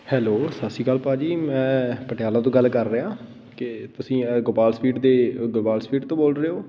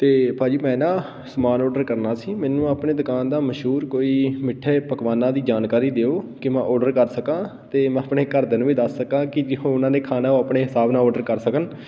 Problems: constant background noise